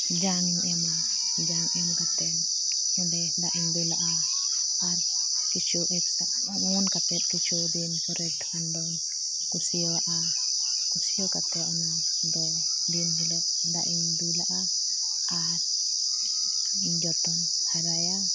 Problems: background sounds at intervals